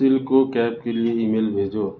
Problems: constant background noise